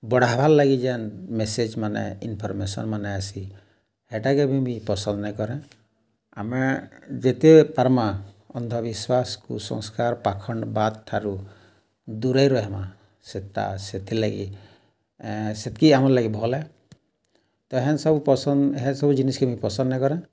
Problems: none marked